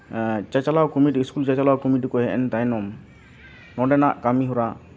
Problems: constant background noise, continuous background conversations